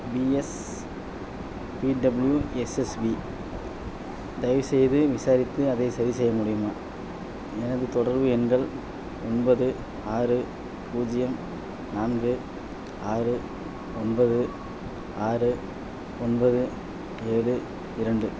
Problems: none marked